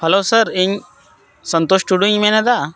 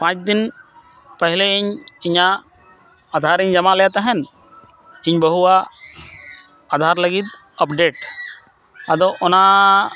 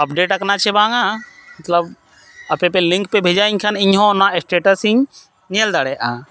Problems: none marked